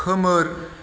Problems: background sounds at intervals